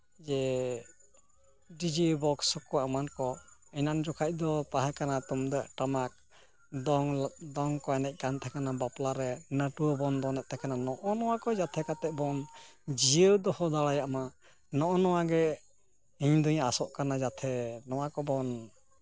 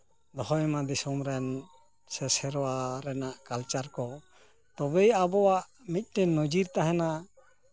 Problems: none marked